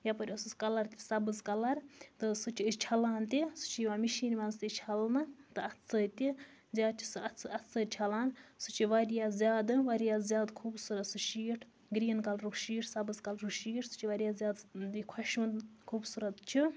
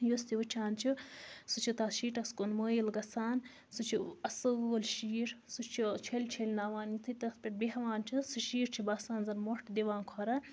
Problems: low volume